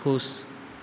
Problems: none marked